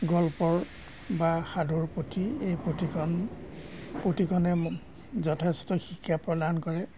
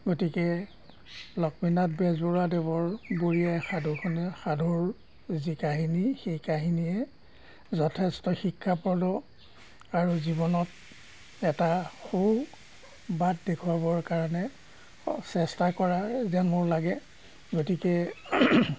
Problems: background sounds at intervals